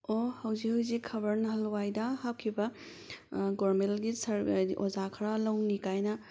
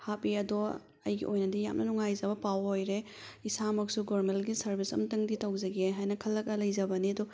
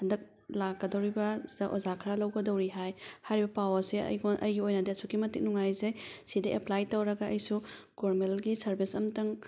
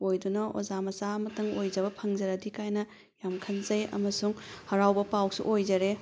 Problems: background sounds at intervals